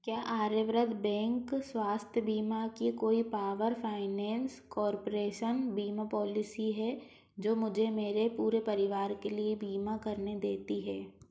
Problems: none marked